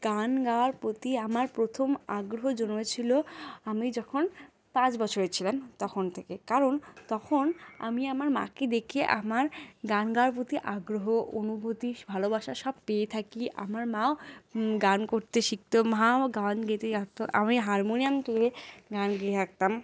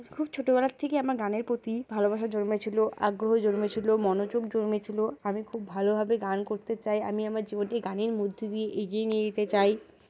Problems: none marked